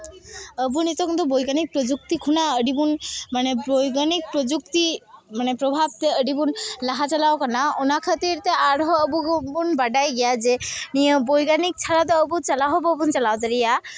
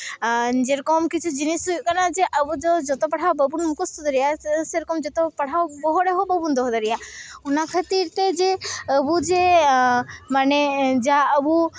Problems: constant background noise, continuous background conversations